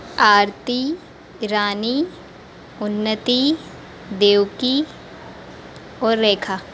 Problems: constant background noise